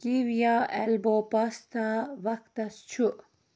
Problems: constant background noise